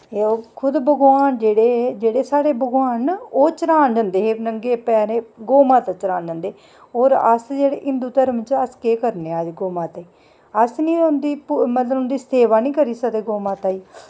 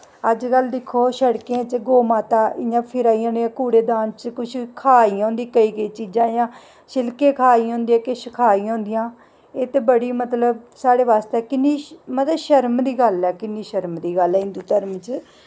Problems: none marked